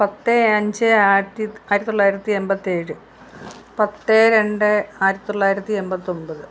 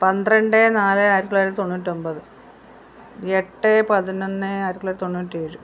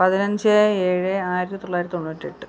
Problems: background conversations at intervals